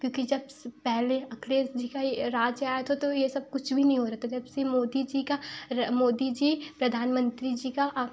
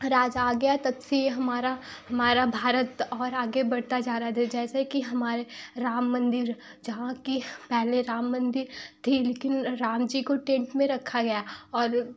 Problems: background sounds at intervals